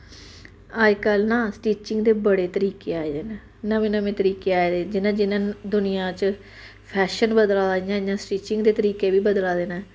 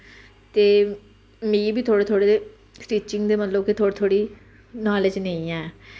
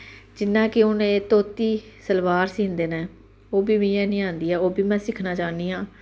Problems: constant background noise